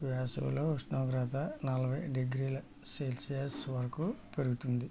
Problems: low volume